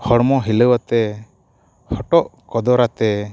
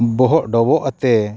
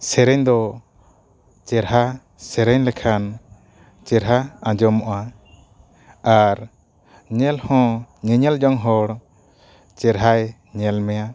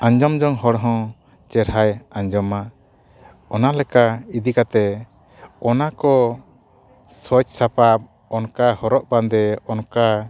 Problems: none marked